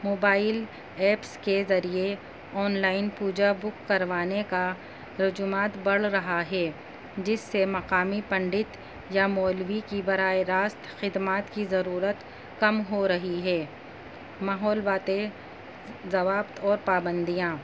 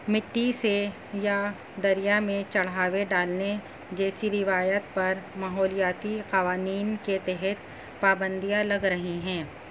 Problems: constant background noise